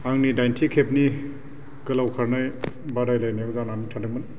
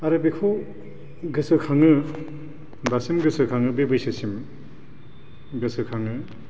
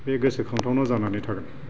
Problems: none marked